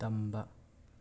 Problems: none marked